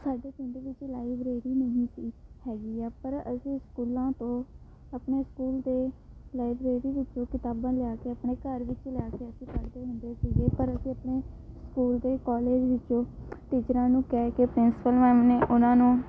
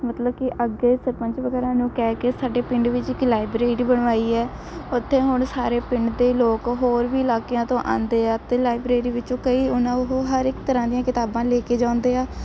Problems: constant background noise